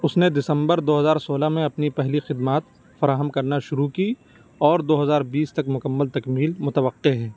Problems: constant background noise